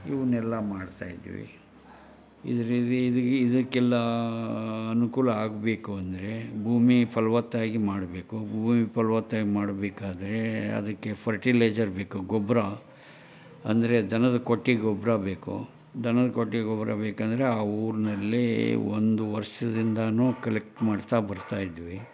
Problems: none marked